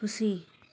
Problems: background sounds at intervals